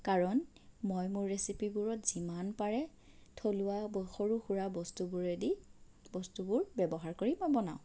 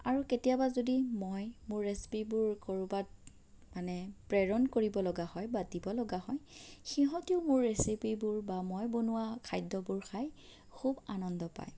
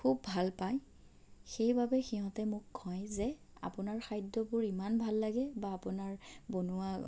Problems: none marked